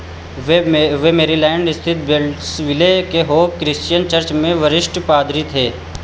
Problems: echo